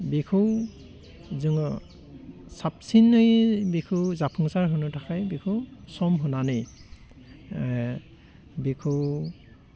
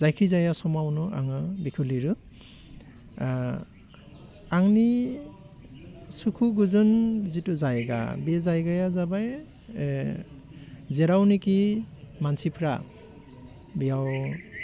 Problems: constant background noise